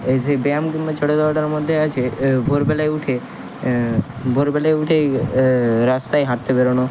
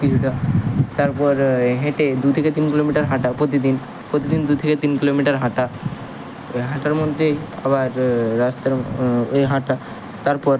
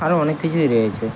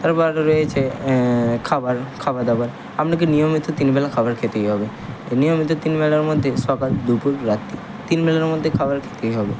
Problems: constant background noise